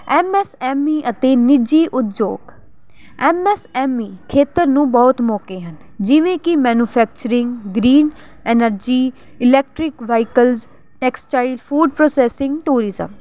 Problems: none marked